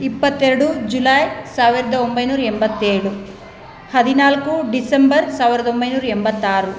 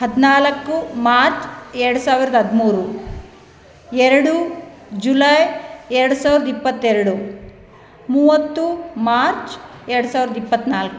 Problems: none marked